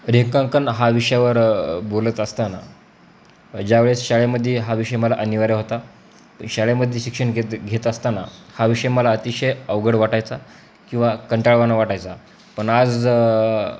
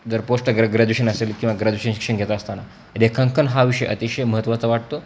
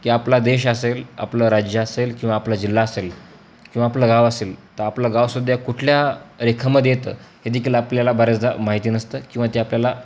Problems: constant background noise